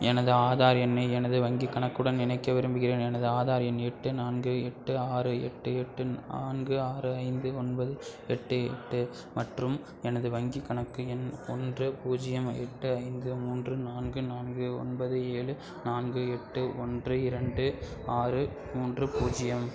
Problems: constant background noise